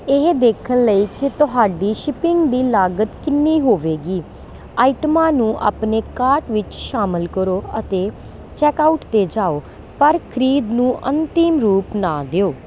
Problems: none marked